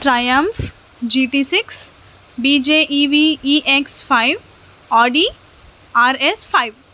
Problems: none marked